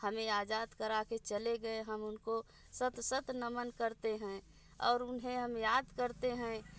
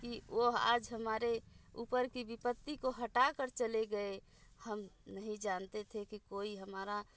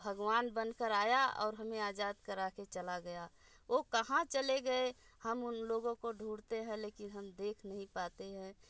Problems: none marked